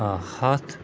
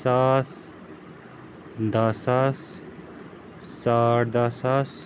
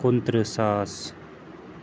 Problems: constant background noise